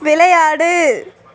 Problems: none marked